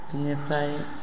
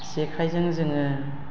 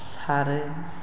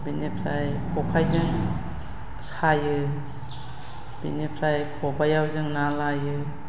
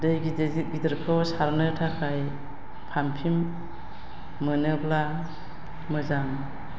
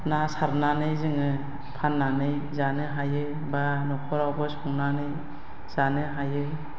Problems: constant background noise